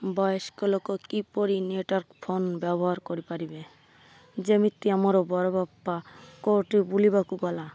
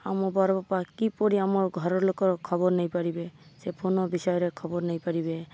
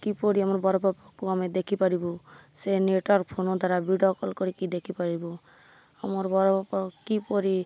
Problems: none marked